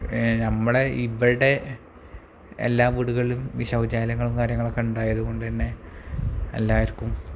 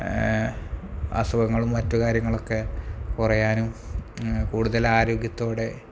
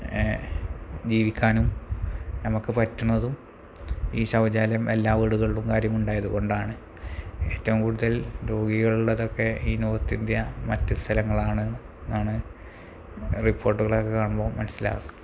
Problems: low volume